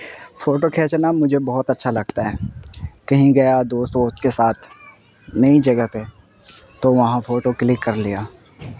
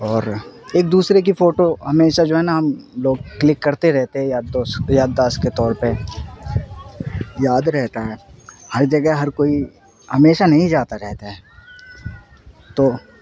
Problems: constant background noise